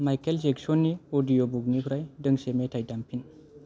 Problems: low volume